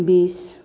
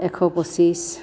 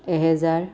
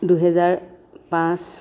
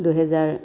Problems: constant background noise, continuous background conversations